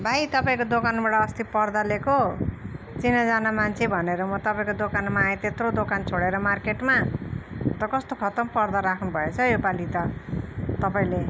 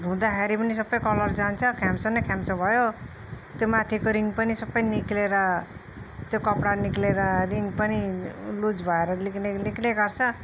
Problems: none marked